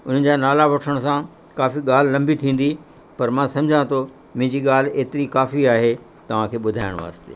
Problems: constant background noise